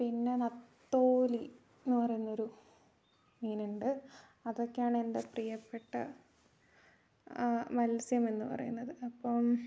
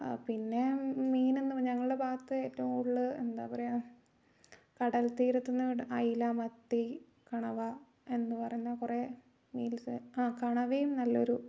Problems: low volume